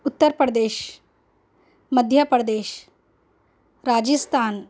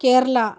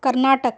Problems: constant background noise